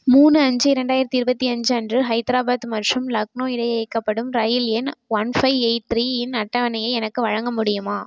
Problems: constant background noise